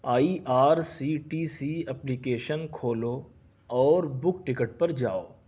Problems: none marked